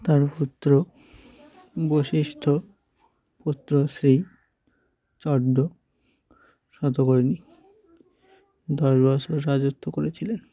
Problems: continuous background conversations